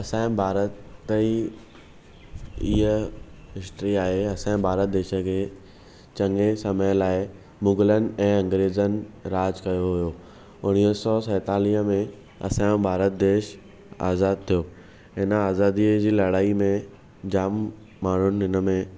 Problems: none marked